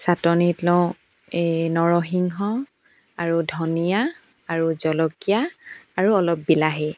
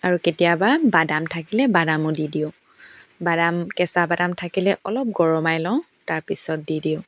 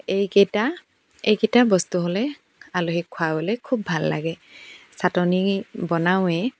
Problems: background sounds at intervals